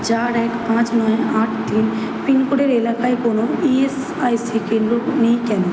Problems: background sounds at intervals